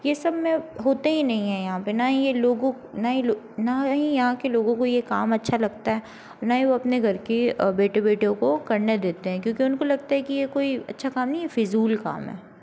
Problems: constant background noise